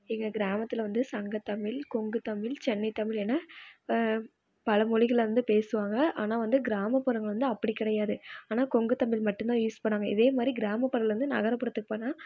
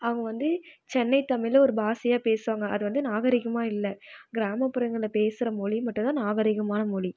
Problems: none marked